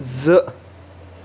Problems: constant background noise